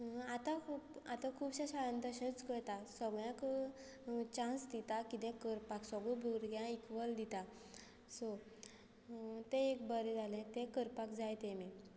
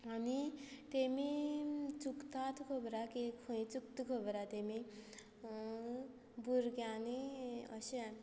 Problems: constant background noise